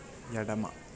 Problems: low volume